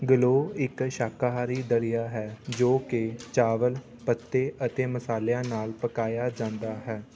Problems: constant background noise, continuous background conversations